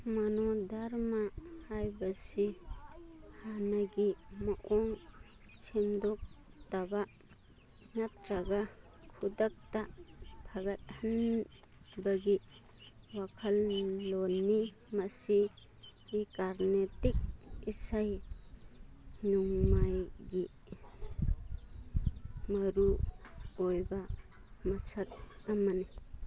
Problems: background sounds at intervals